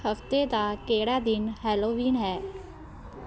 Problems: constant background noise